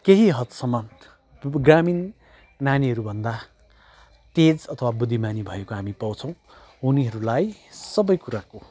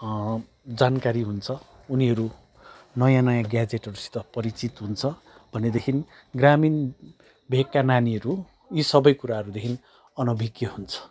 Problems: background sounds at intervals